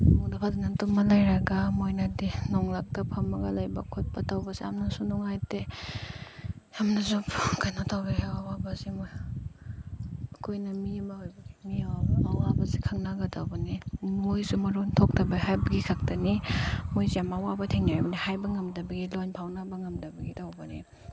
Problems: background sounds at intervals, low volume